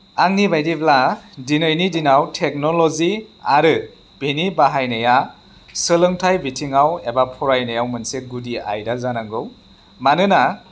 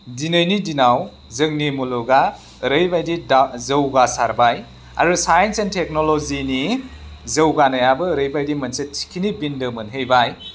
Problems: none marked